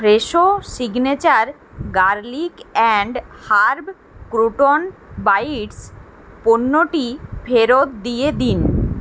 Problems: constant background noise